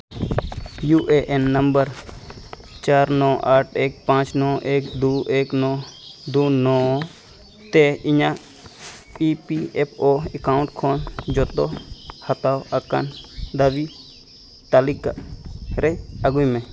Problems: none marked